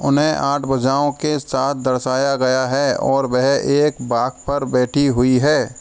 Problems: none marked